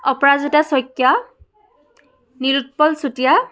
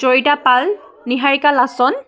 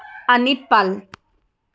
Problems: continuous background conversations